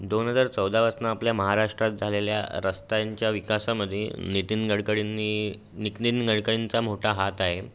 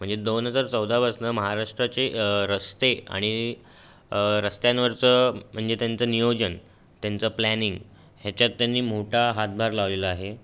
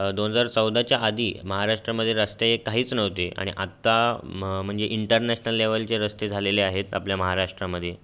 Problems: constant background noise